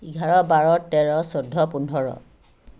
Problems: none marked